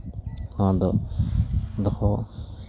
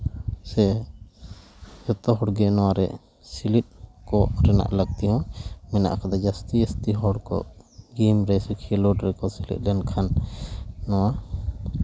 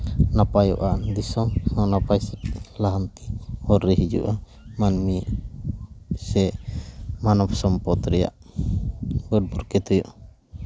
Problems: constant background noise